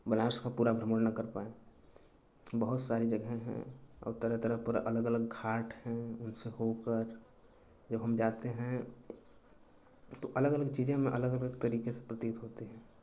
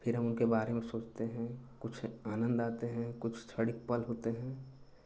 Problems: none marked